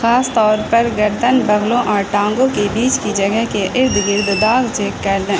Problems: constant background noise